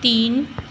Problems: constant background noise